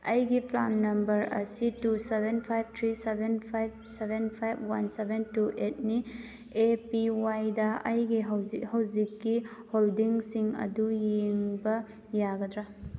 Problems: none marked